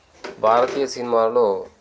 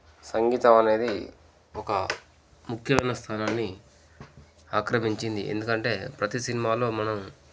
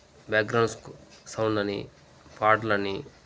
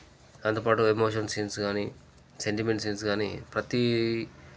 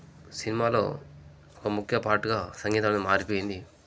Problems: background sounds at intervals